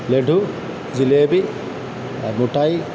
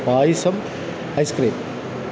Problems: none marked